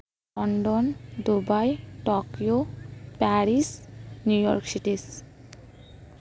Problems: background sounds at intervals, background conversations at intervals